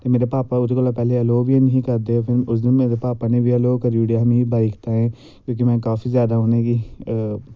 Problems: background sounds at intervals